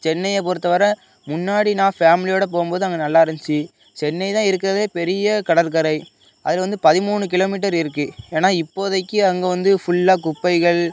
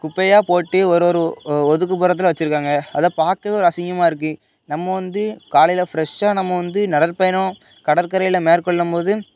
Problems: none marked